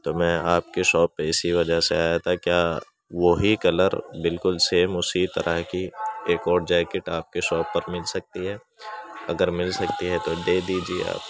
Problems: background sounds at intervals